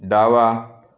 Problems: none marked